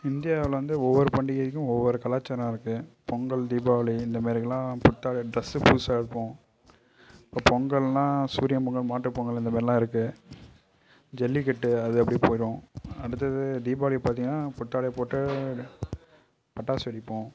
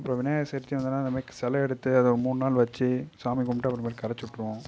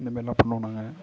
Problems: low volume